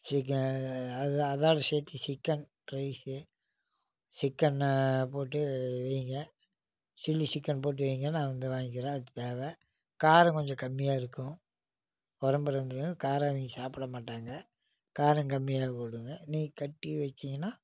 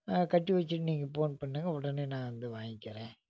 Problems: low volume